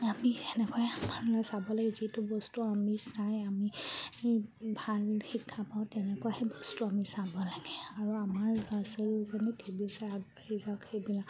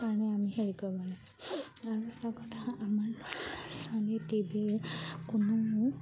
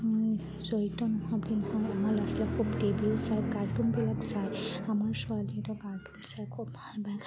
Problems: none marked